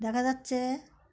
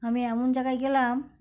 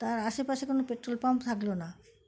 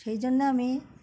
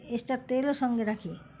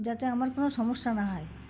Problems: background sounds at intervals, background conversations at intervals